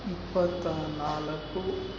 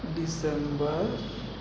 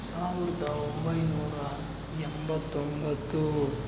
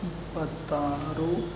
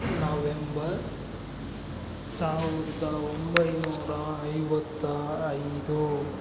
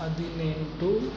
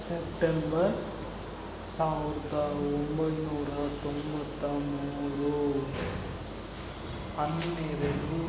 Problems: background sounds at intervals